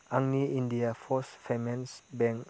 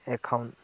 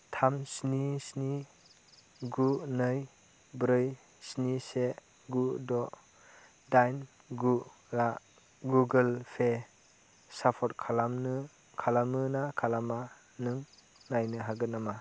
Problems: constant background noise